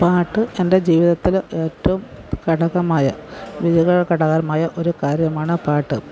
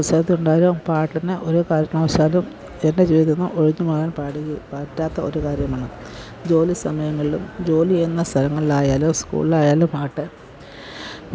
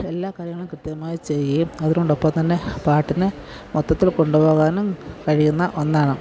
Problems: none marked